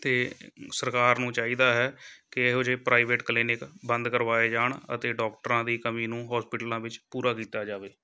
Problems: background sounds at intervals, background conversations at intervals